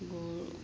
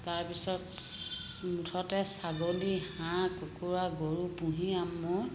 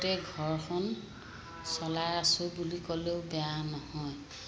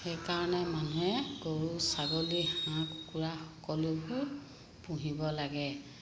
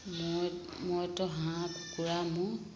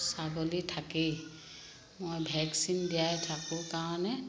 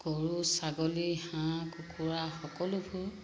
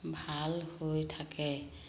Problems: constant background noise, echo